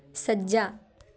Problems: continuous background conversations